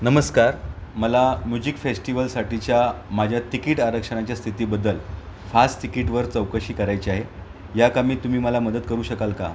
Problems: constant background noise, background conversations at intervals